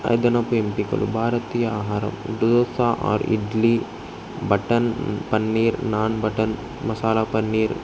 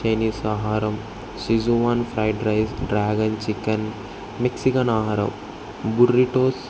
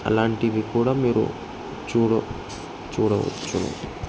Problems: constant background noise